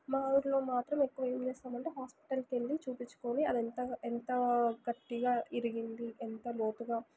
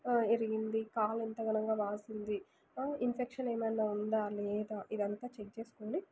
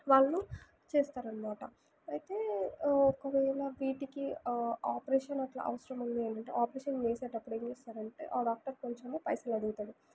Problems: background sounds at intervals, low volume